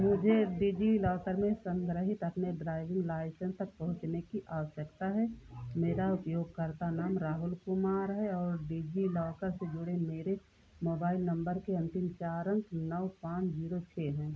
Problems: constant background noise, low volume